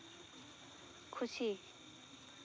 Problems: background sounds at intervals